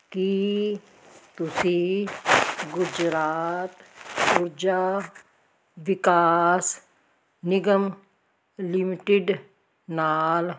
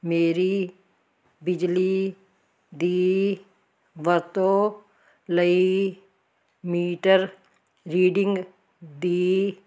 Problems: none marked